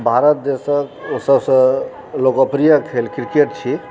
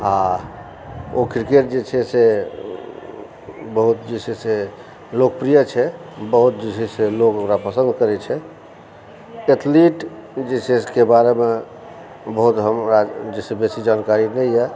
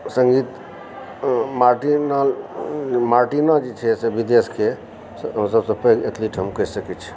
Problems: constant background noise, background conversations at intervals